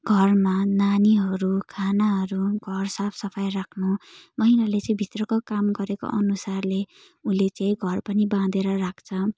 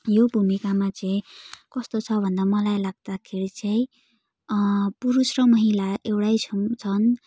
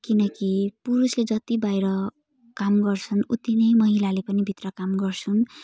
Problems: none marked